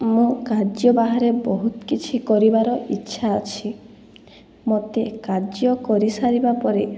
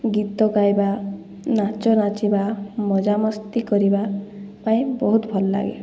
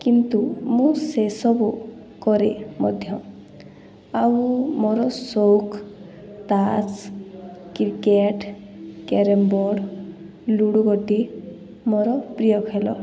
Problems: background conversations at intervals